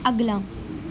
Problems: none marked